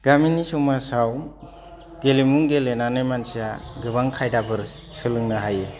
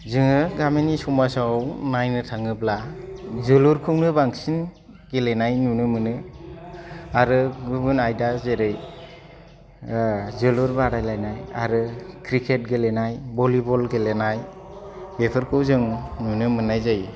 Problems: low volume